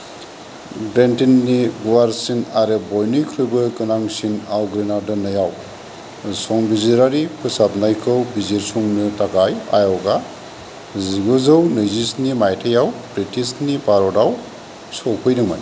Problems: none marked